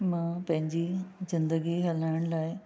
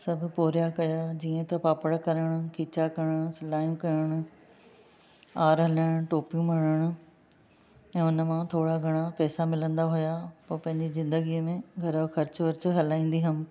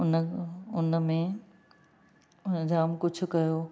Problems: none marked